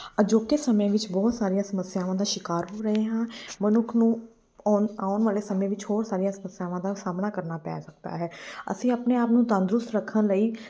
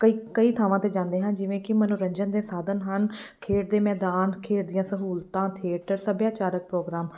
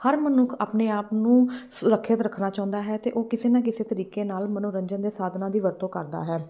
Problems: background sounds at intervals